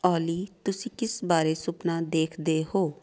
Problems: background sounds at intervals